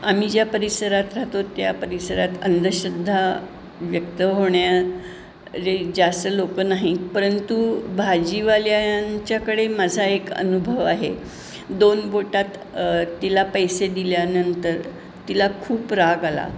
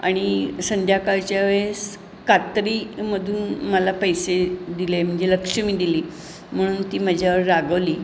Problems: none marked